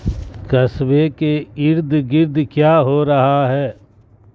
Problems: constant background noise